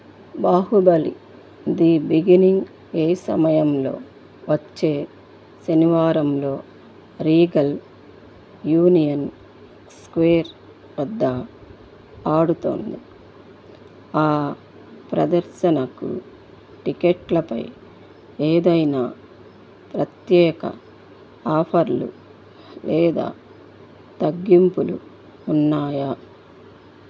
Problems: background sounds at intervals